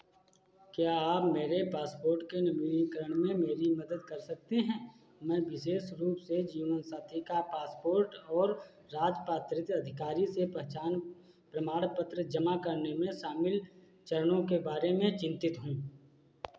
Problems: constant background noise